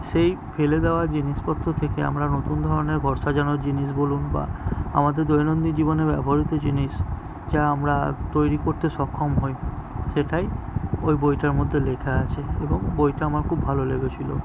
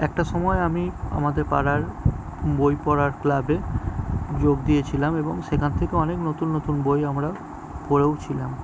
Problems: background sounds at intervals